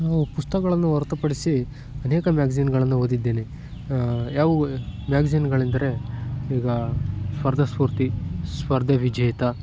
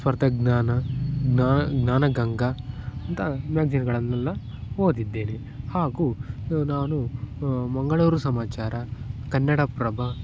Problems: background sounds at intervals